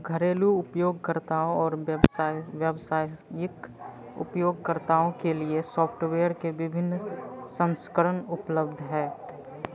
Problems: constant background noise